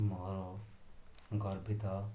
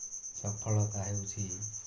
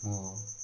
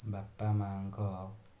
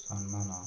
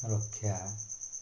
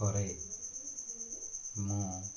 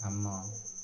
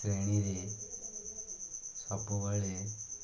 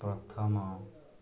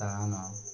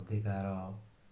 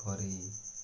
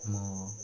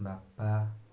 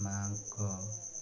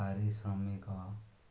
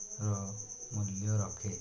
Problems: none marked